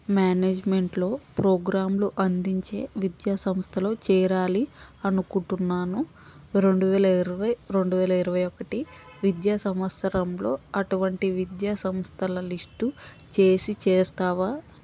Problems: constant background noise